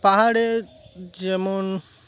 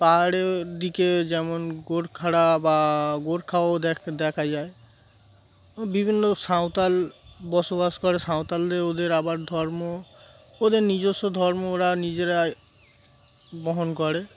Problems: constant background noise